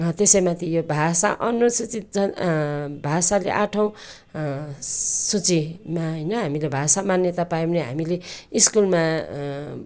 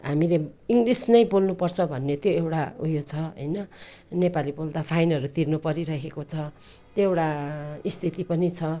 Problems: none marked